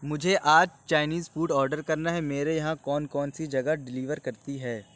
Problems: none marked